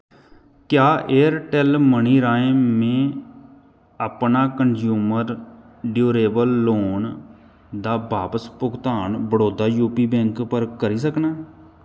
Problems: none marked